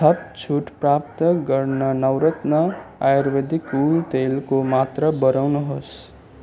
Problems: constant background noise